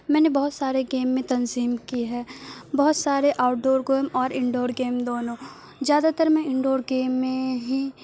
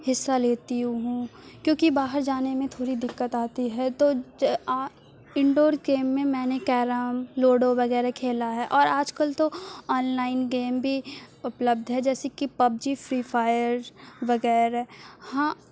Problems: constant background noise